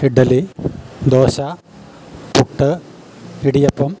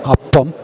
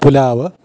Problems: background sounds at intervals